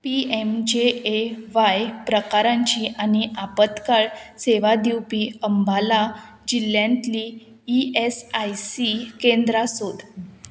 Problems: constant background noise